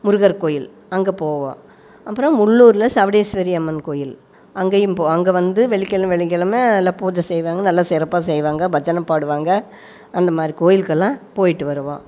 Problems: background sounds at intervals